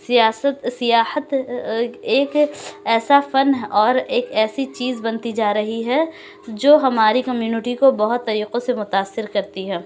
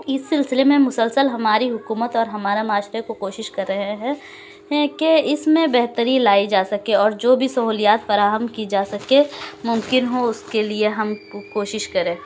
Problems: constant background noise, background conversations at intervals